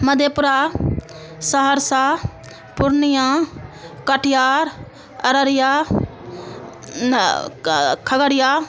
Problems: constant background noise